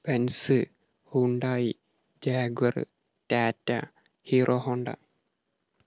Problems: none marked